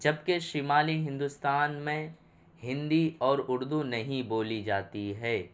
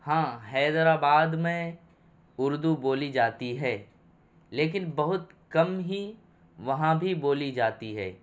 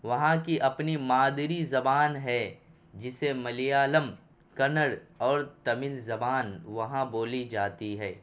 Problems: none marked